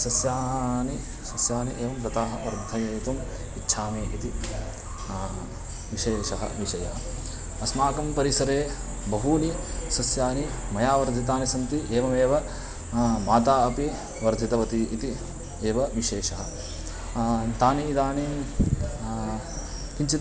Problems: none marked